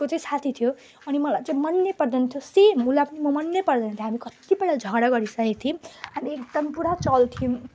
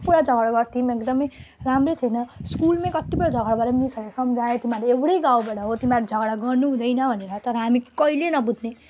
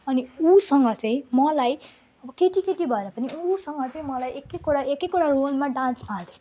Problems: none marked